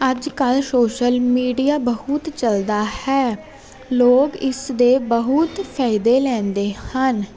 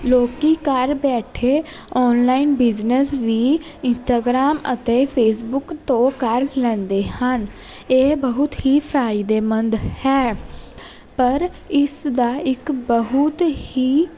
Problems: constant background noise